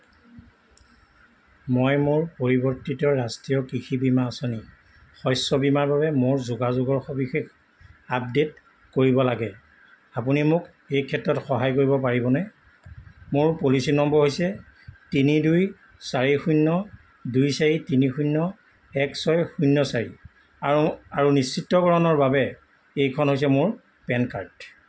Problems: constant background noise